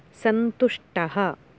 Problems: none marked